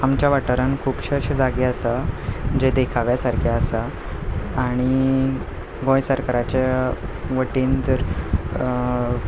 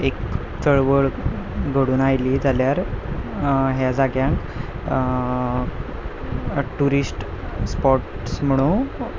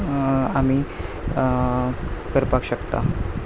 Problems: background sounds at intervals, background conversations at intervals